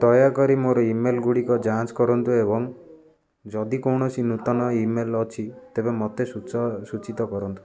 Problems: constant background noise, continuous background conversations